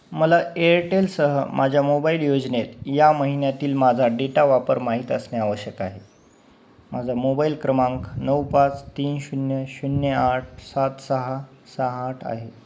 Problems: background sounds at intervals